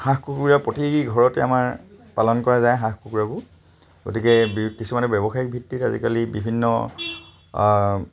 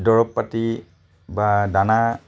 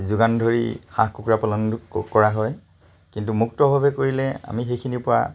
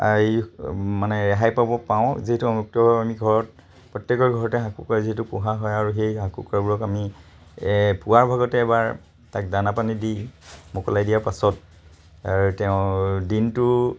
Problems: constant background noise